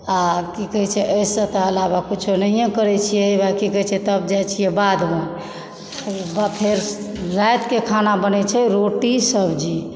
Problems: background sounds at intervals